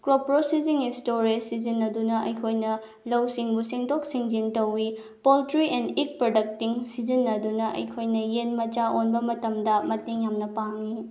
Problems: none marked